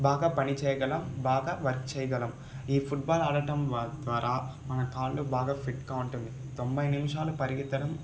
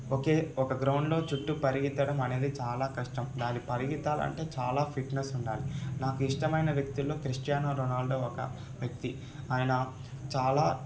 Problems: constant background noise, background conversations at intervals